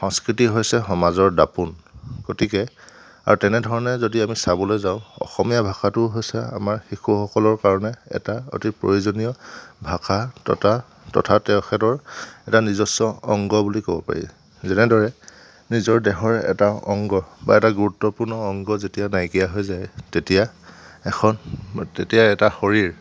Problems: none marked